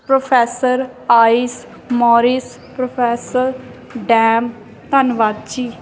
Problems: background sounds at intervals